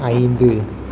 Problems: none marked